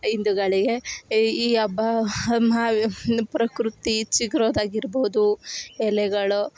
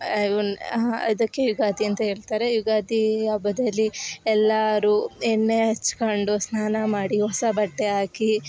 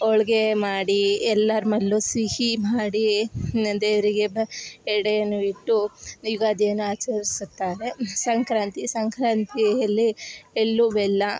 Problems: background sounds at intervals